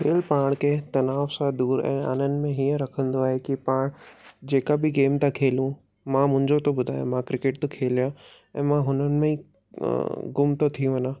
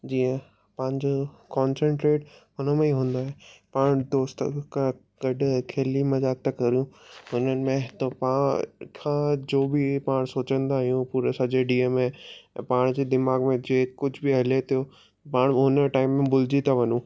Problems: none marked